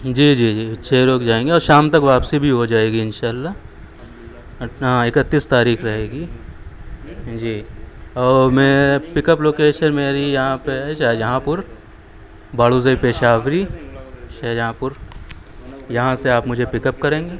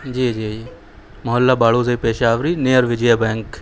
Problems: background conversations at intervals